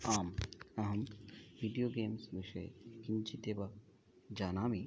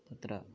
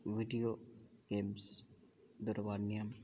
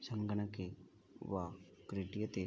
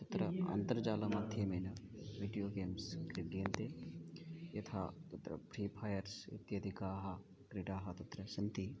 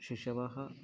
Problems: continuous background conversations